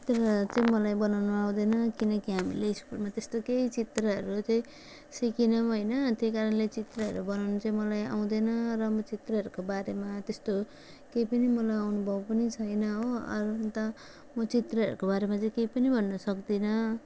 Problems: constant background noise